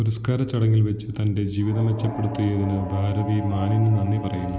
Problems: constant background noise, low volume